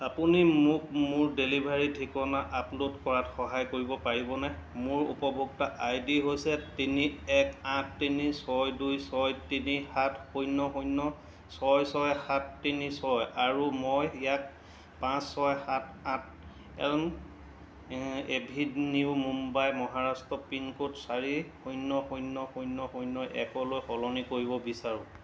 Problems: constant background noise